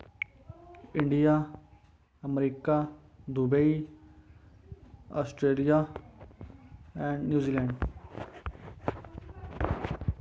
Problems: constant background noise